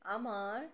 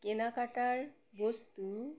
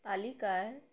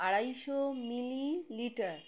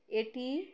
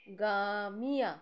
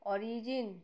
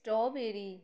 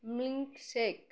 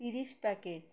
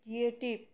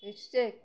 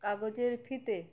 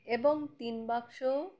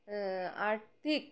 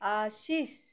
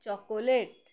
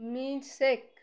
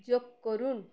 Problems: background sounds at intervals